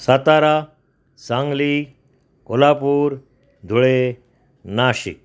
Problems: constant background noise